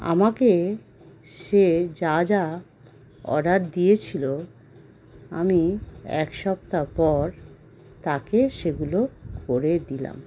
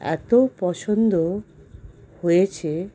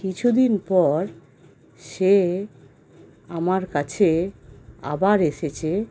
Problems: constant background noise